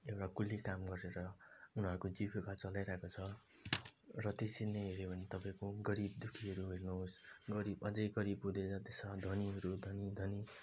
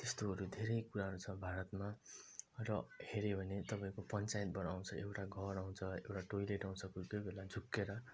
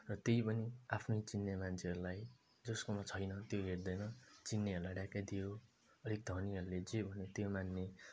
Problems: low volume